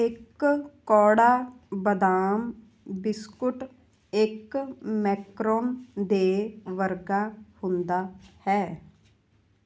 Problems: none marked